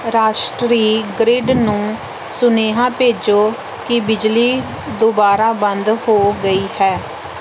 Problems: background sounds at intervals